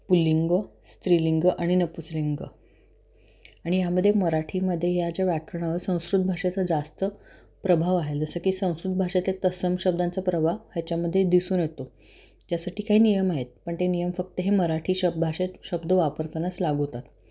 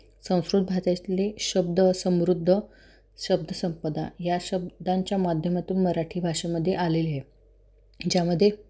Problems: constant background noise